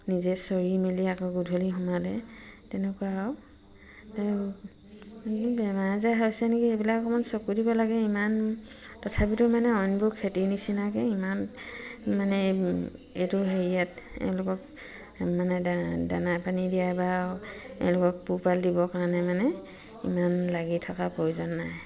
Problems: continuous background conversations